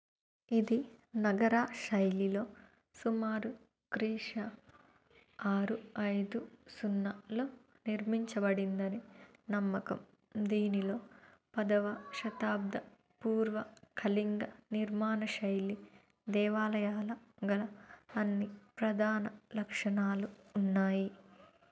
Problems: low volume